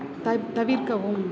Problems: background sounds at intervals